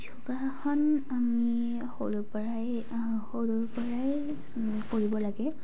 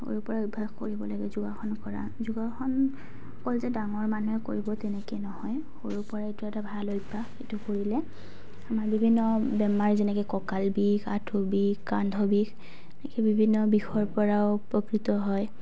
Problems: none marked